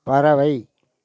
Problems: none marked